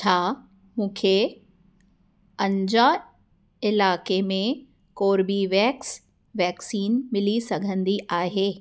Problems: none marked